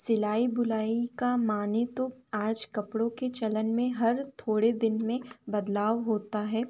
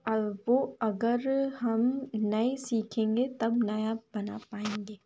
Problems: none marked